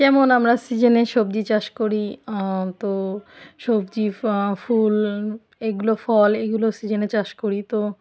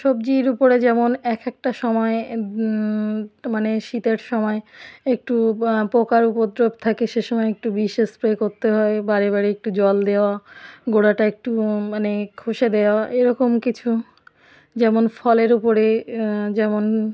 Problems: background sounds at intervals